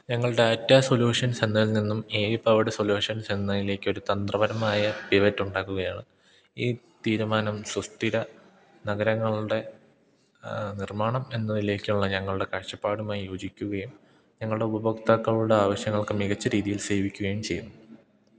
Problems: low volume